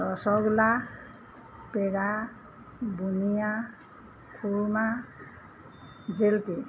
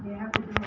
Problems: background sounds at intervals